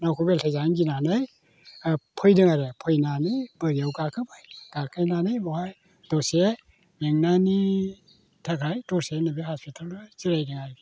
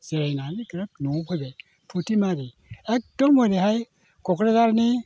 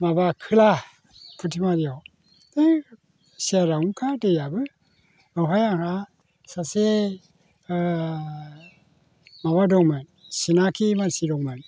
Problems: none marked